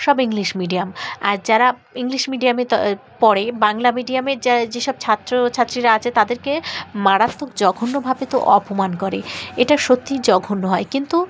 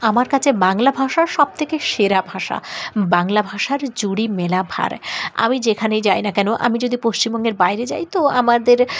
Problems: none marked